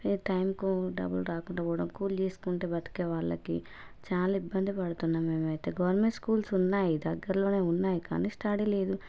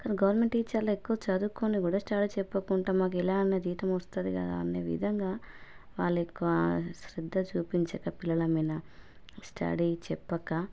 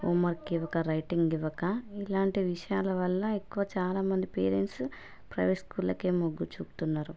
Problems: background conversations at intervals